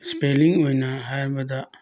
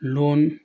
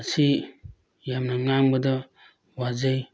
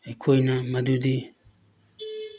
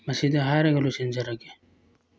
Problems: background sounds at intervals